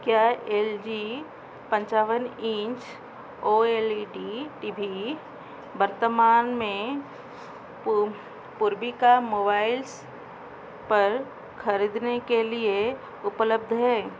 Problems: constant background noise